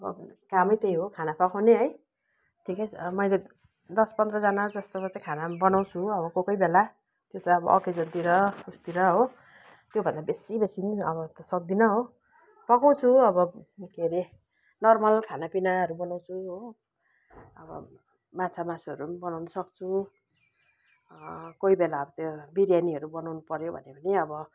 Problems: background sounds at intervals